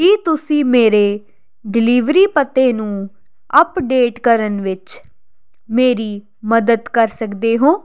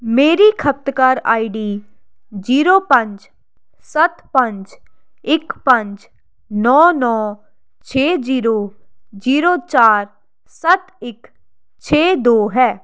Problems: constant background noise